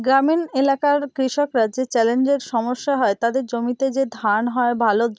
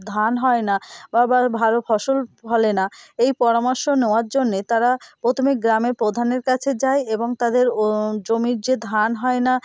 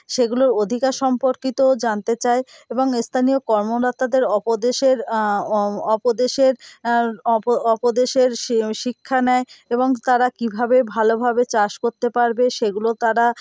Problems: constant background noise